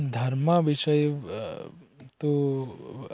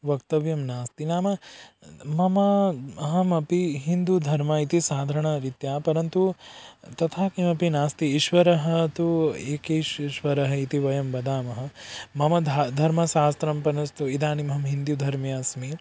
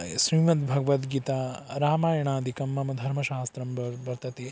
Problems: background sounds at intervals